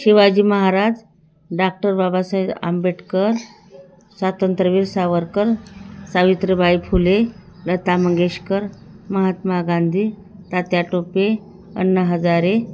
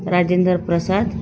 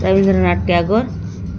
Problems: none marked